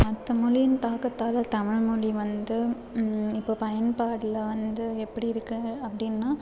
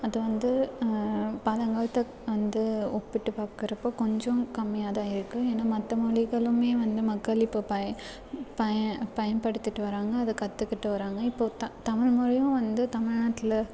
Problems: constant background noise